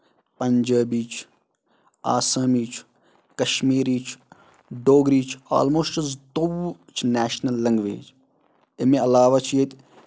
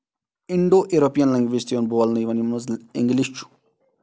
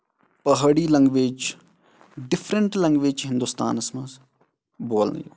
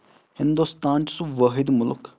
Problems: none marked